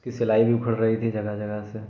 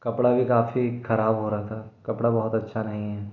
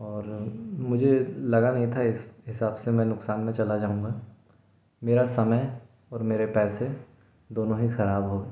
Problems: none marked